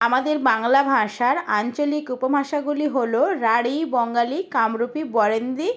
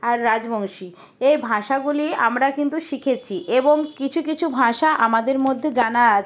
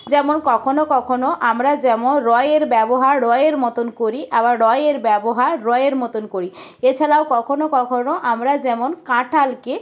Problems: constant background noise